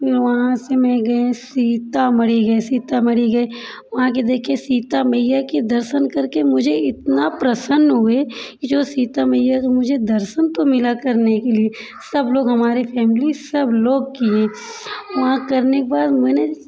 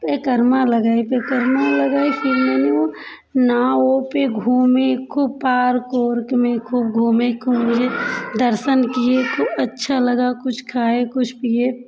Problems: constant background noise, continuous background conversations